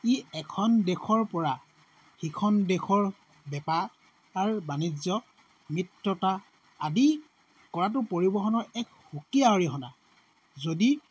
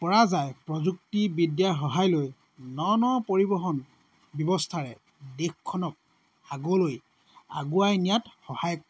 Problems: constant background noise